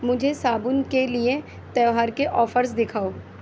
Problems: constant background noise